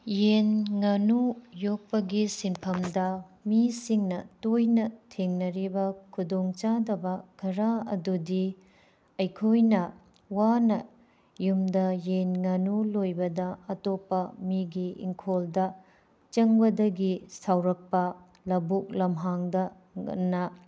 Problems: none marked